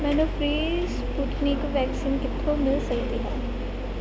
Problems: constant background noise